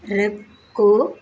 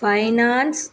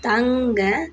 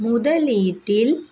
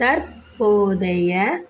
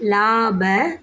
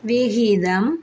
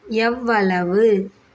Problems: none marked